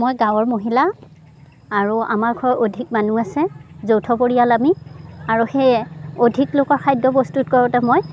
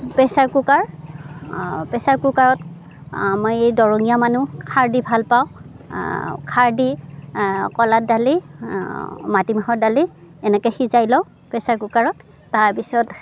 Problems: none marked